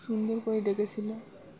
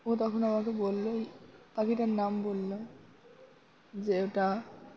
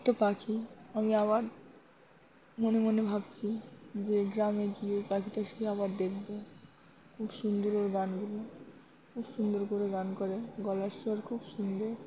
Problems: constant background noise